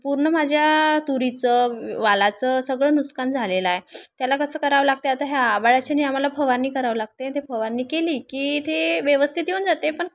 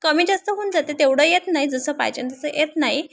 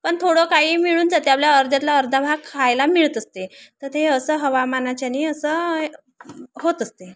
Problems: constant background noise, background conversations at intervals